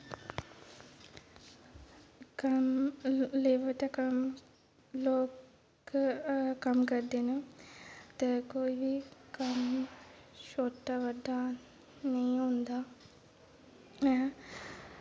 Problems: background sounds at intervals